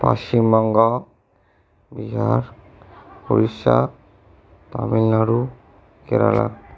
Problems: none marked